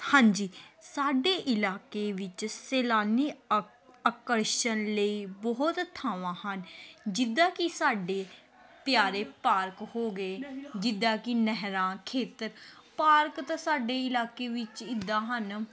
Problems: background conversations at intervals